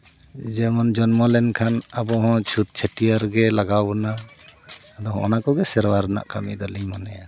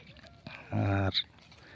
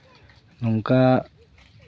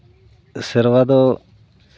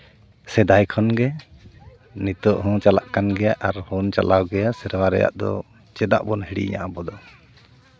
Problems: none marked